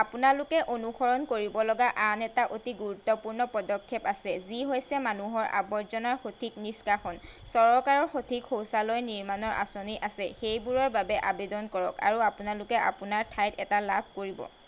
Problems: none marked